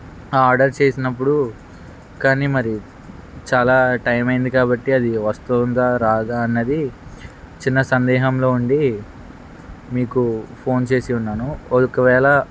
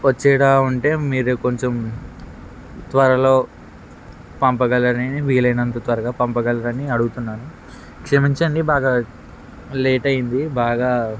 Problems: constant background noise